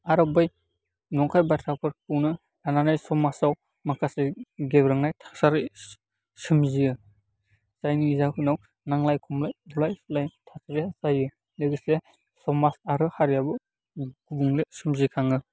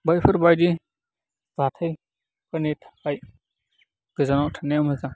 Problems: constant background noise